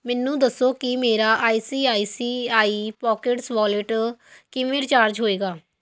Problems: none marked